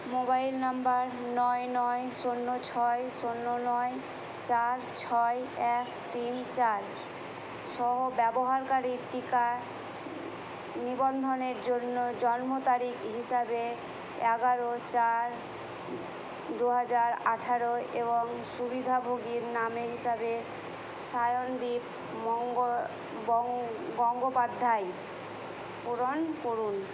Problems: none marked